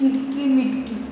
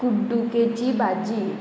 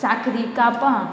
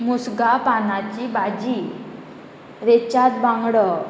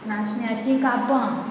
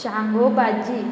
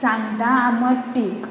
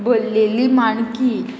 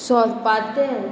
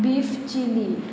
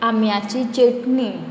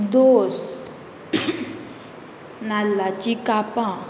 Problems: constant background noise